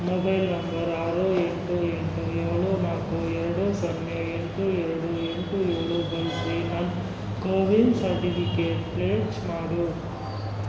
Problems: constant background noise